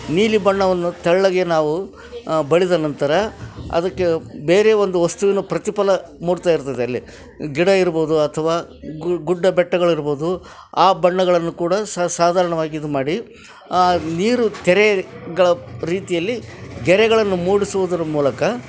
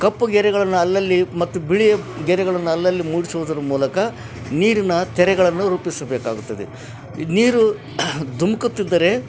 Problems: none marked